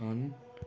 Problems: constant background noise